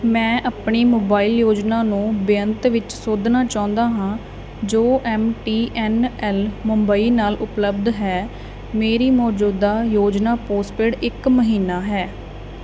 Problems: background conversations at intervals